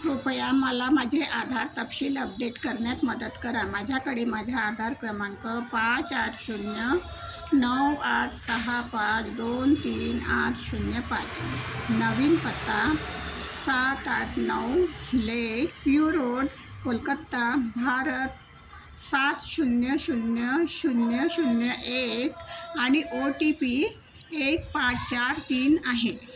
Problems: constant background noise